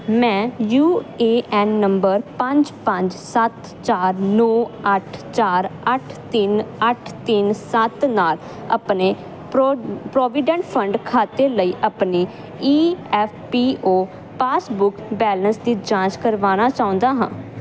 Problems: none marked